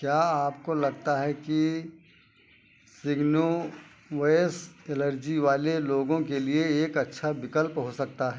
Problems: constant background noise